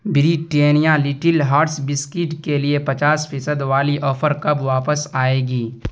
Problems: none marked